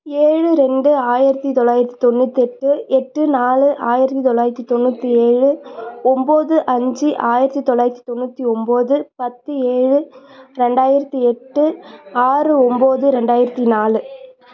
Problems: background conversations at intervals